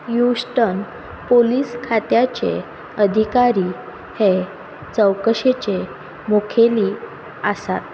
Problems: constant background noise